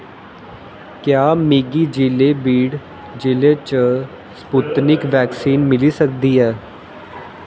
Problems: constant background noise, echo